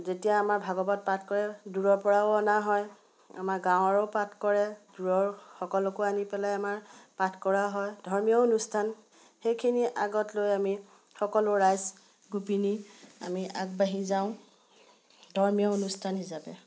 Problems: none marked